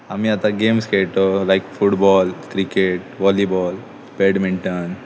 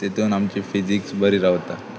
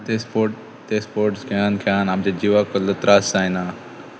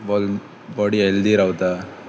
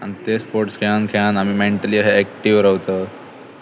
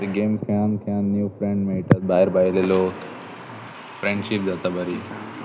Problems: constant background noise, continuous background conversations